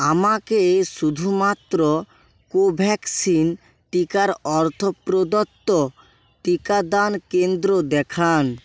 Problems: constant background noise